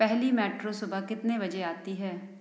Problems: none marked